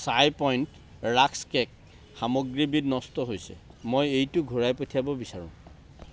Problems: none marked